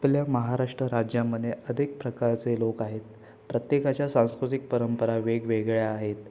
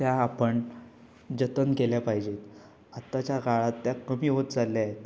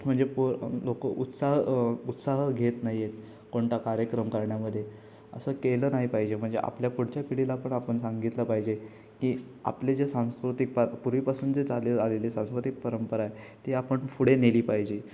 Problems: constant background noise